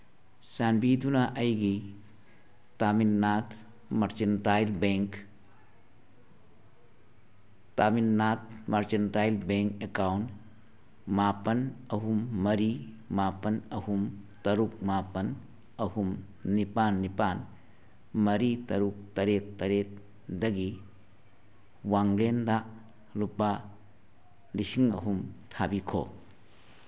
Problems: none marked